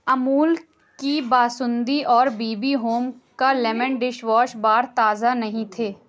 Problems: none marked